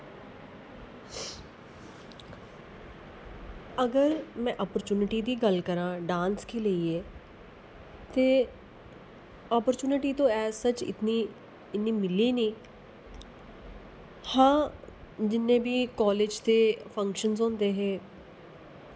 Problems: constant background noise